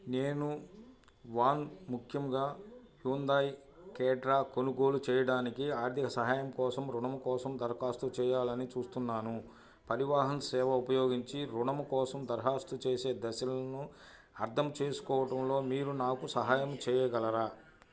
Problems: none marked